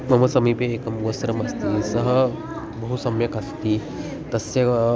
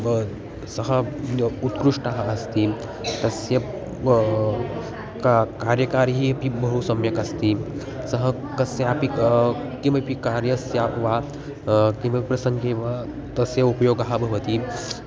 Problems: background sounds at intervals